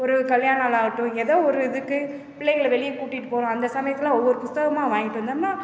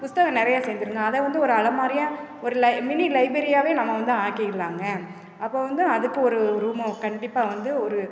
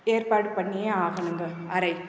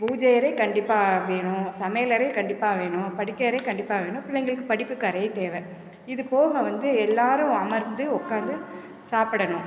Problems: constant background noise